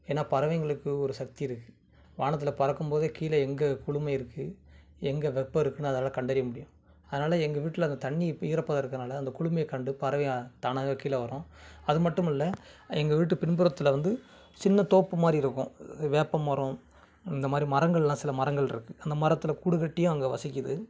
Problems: none marked